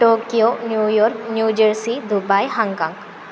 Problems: constant background noise